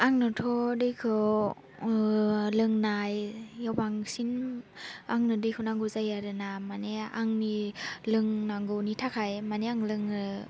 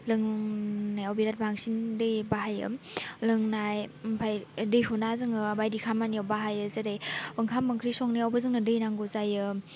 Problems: none marked